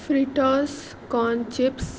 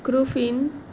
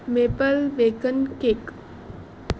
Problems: constant background noise